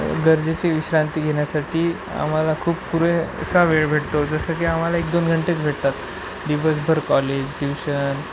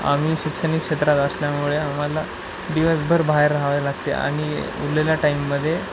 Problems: constant background noise